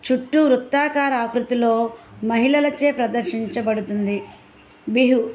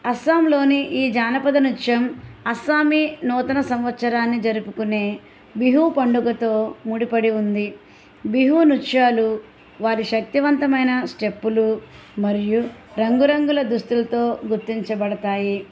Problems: background sounds at intervals